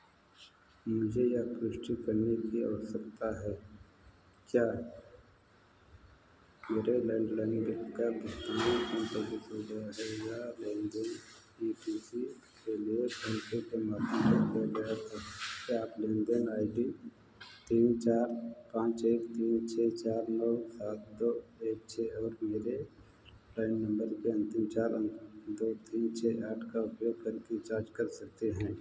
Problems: background sounds at intervals, low volume